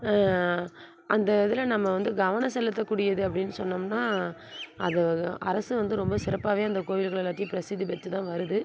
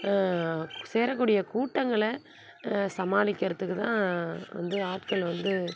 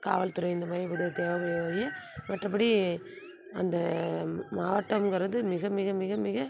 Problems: constant background noise